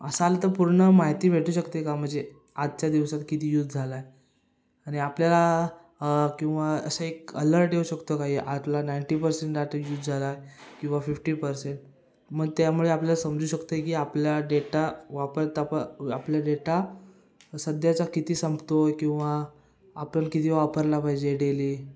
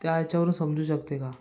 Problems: background sounds at intervals, background conversations at intervals